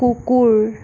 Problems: constant background noise